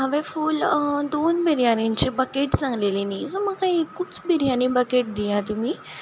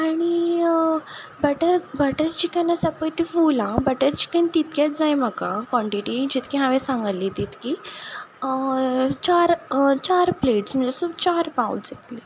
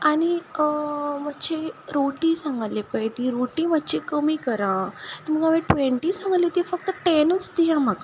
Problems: none marked